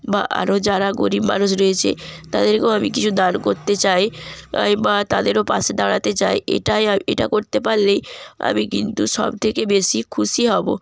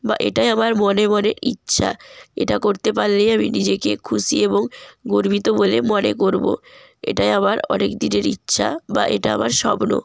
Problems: background sounds at intervals